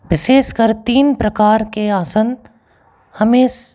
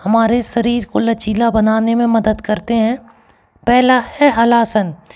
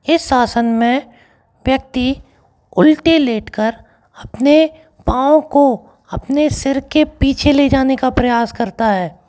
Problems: background sounds at intervals